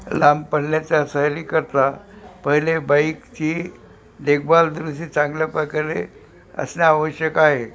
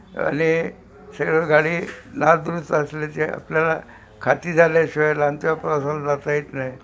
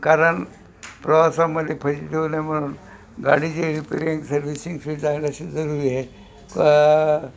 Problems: constant background noise, background conversations at intervals